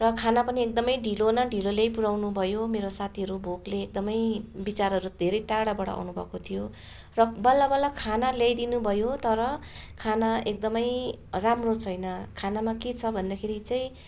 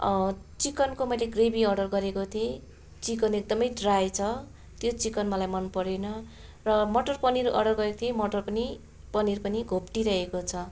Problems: constant background noise, continuous background conversations